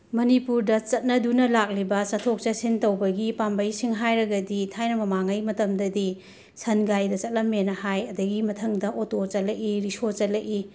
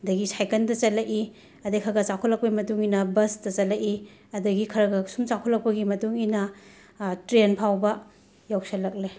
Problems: background sounds at intervals